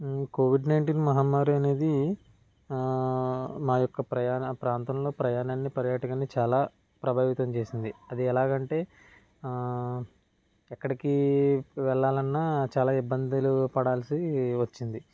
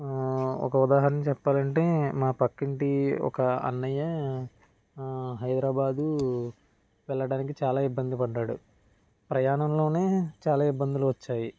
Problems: none marked